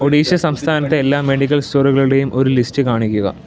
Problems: none marked